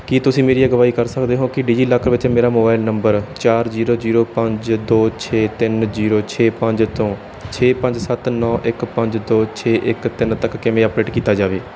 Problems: background sounds at intervals